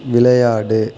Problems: constant background noise